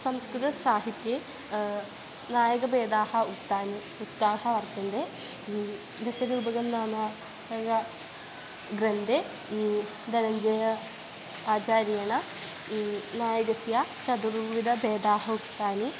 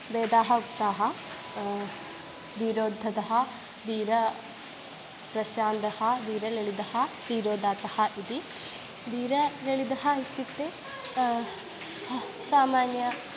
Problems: constant background noise